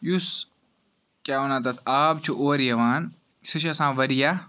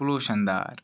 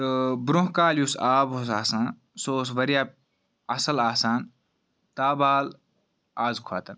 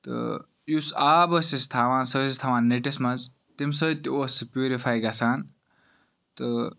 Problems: background sounds at intervals